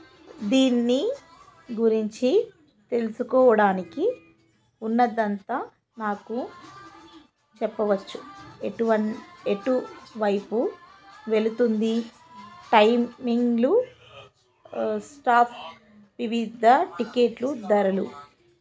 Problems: background sounds at intervals, background conversations at intervals